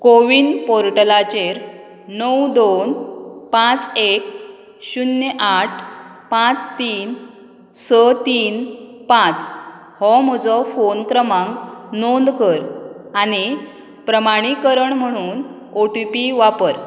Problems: background sounds at intervals